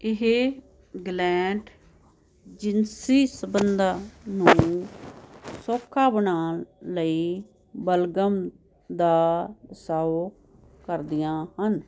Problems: constant background noise